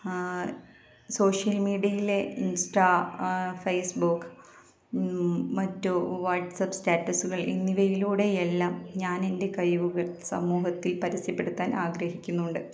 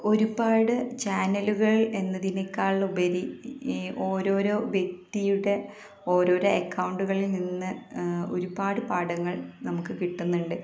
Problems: continuous background conversations, low volume